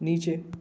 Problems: constant background noise